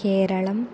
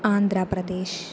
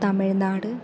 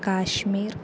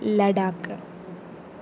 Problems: constant background noise